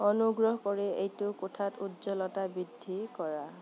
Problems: constant background noise